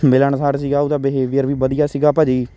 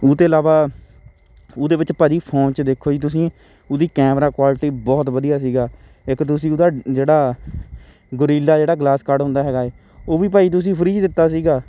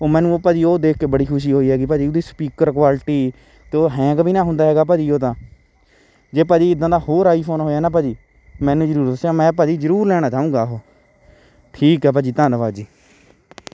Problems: constant background noise, background conversations at intervals